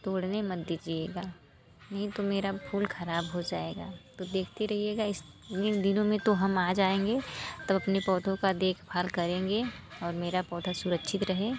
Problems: constant background noise, background conversations at intervals